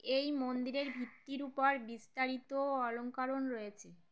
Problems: none marked